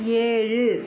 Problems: constant background noise, background conversations at intervals